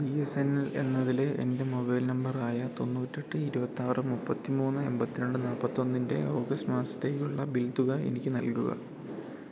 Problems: none marked